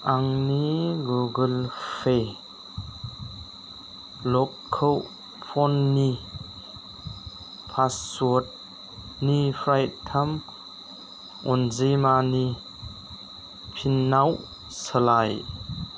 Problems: constant background noise